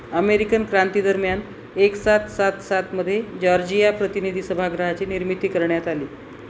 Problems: constant background noise